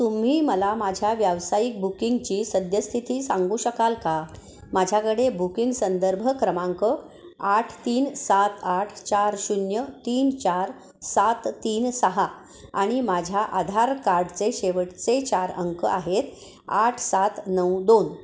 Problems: constant background noise, echo